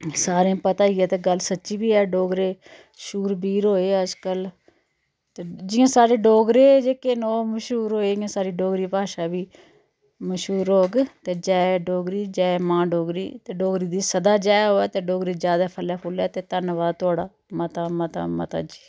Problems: none marked